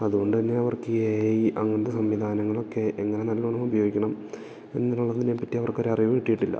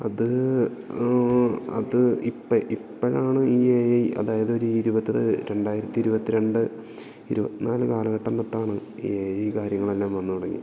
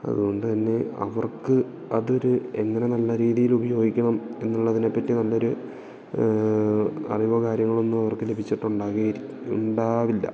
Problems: background sounds at intervals